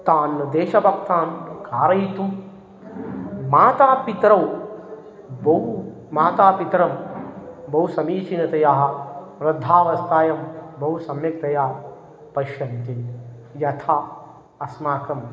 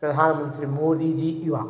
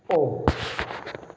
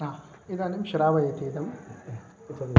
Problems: none marked